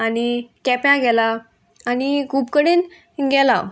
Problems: constant background noise